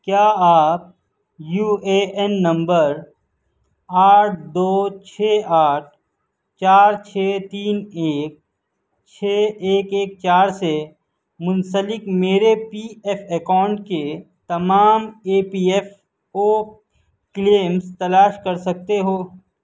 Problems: none marked